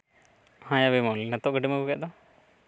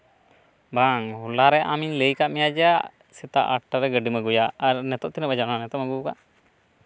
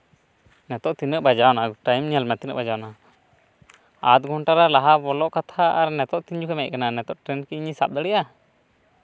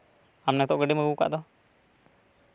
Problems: background sounds at intervals